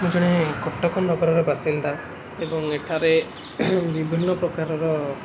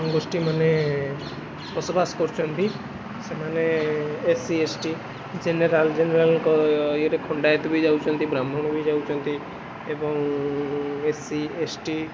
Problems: constant background noise